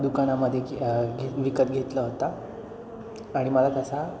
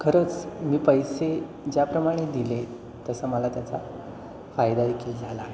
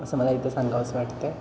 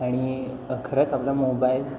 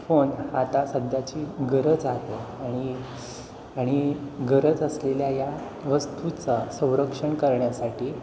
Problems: constant background noise, background conversations at intervals, echo